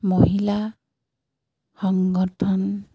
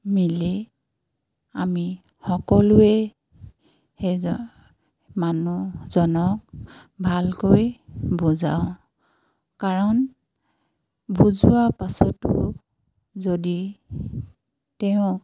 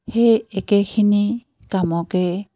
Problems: constant background noise